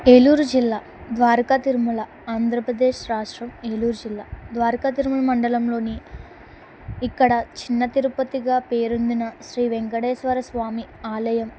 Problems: constant background noise